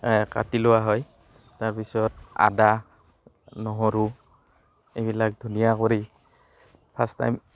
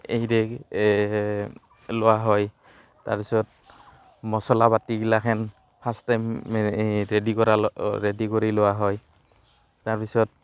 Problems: constant background noise